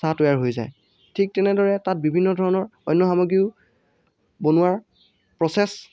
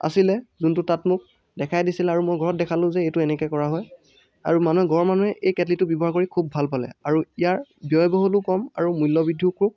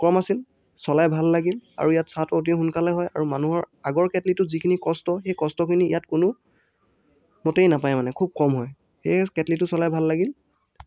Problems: none marked